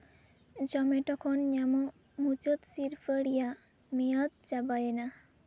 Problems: low volume